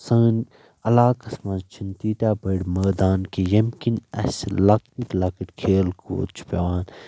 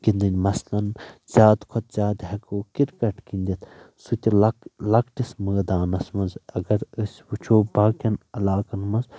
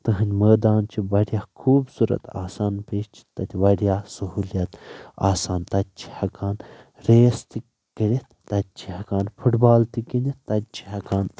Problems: background sounds at intervals